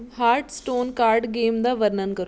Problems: background conversations at intervals